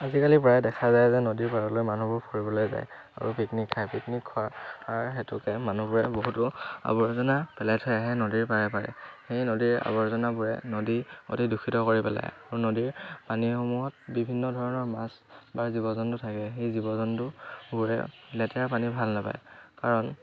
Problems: none marked